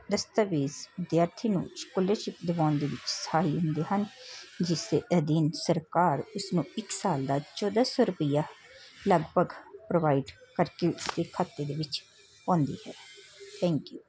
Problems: constant background noise, background conversations at intervals